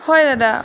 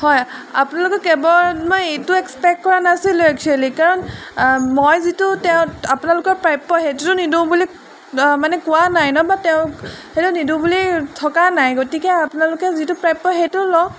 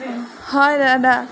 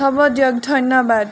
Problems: background sounds at intervals